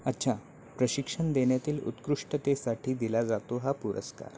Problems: none marked